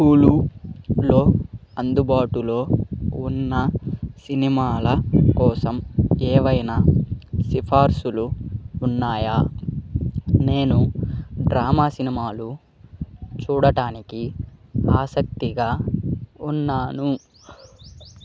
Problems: background sounds at intervals